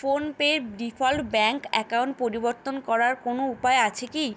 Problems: constant background noise